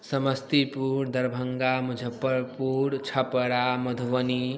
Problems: none marked